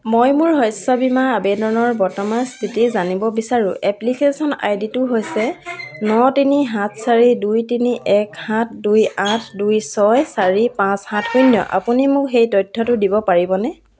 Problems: low volume